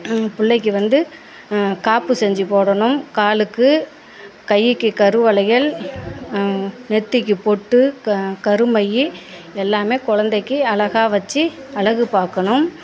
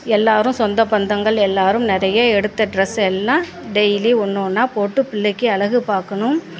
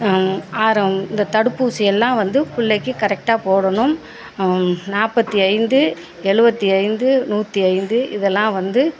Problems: background conversations at intervals